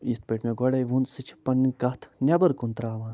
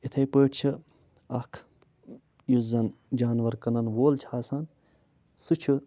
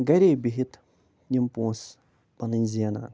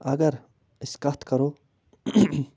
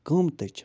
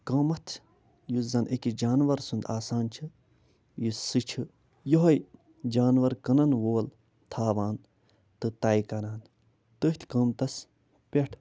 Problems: none marked